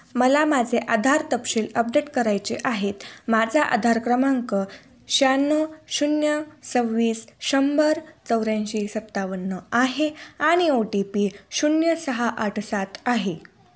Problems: none marked